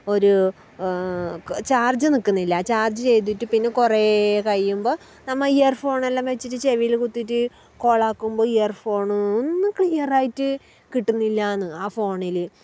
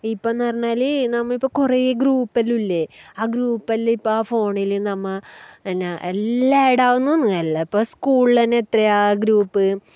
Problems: background sounds at intervals